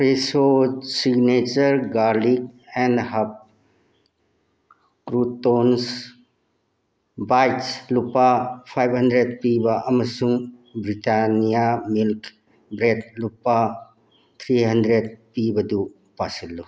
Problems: none marked